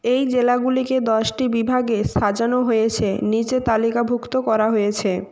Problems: none marked